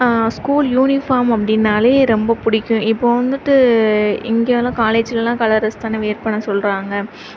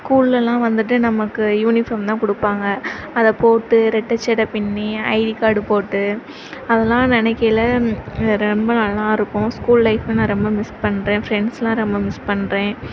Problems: none marked